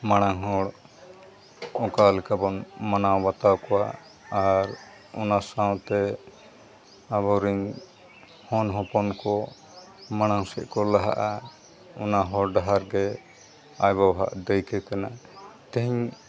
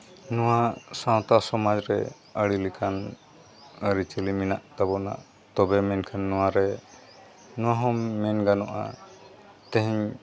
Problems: background sounds at intervals